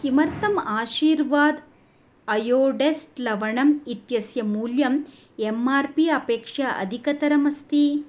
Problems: none marked